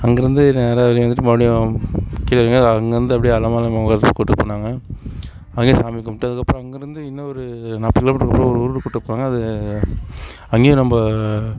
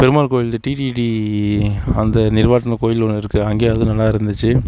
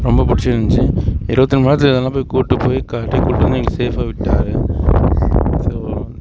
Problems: constant background noise